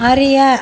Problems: none marked